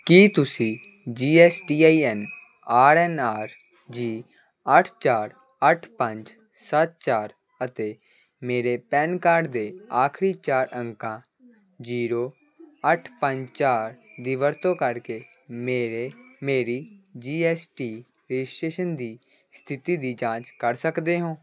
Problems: constant background noise